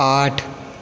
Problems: constant background noise